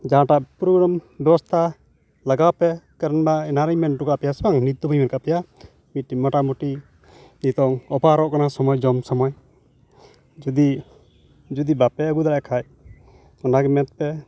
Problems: background sounds at intervals